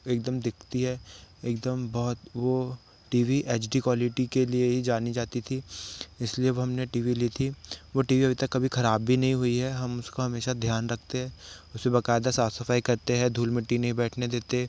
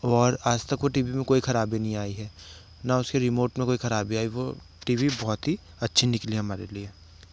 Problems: none marked